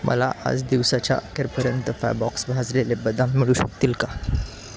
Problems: none marked